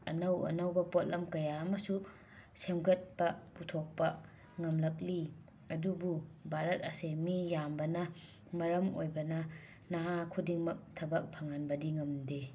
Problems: background sounds at intervals